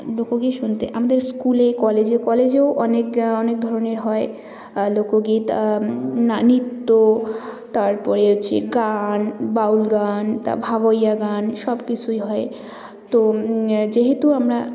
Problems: continuous background conversations